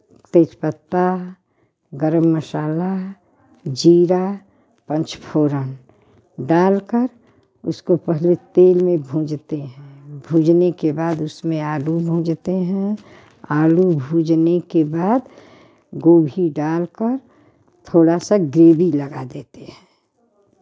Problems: none marked